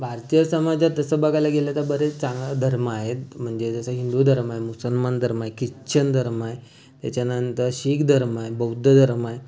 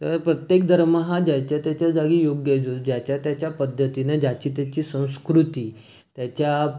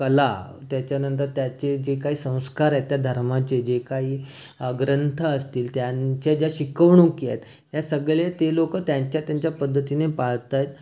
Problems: constant background noise, background conversations at intervals